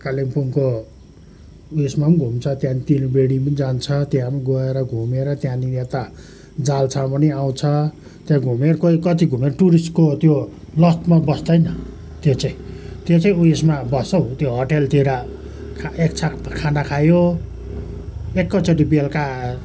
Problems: constant background noise